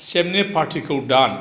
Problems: none marked